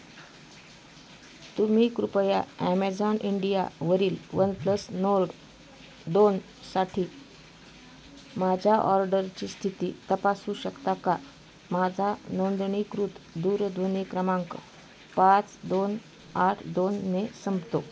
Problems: constant background noise, continuous background conversations